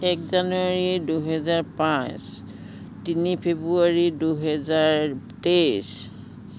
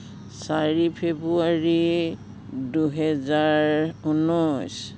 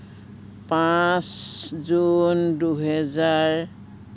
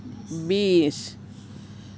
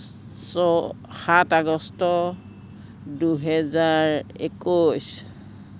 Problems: none marked